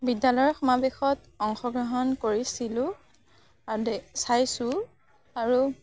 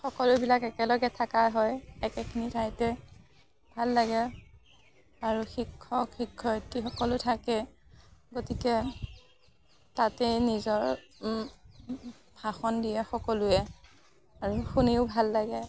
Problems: none marked